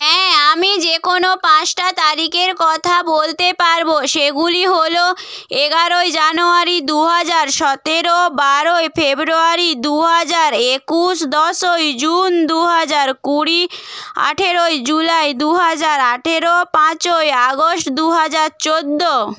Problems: none marked